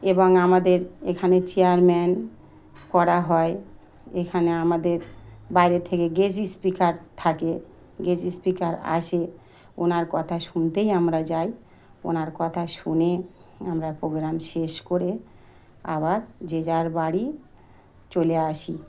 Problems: background sounds at intervals